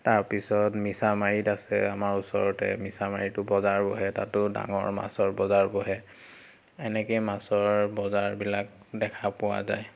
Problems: constant background noise